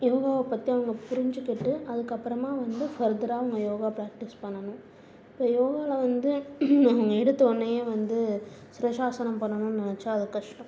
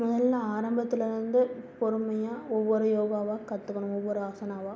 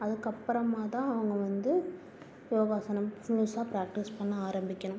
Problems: low volume